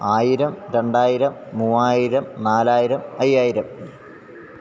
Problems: none marked